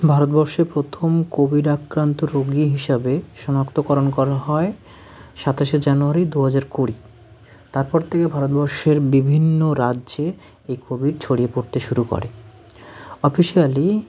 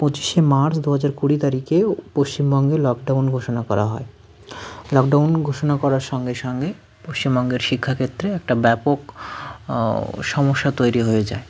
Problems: background sounds at intervals, background conversations at intervals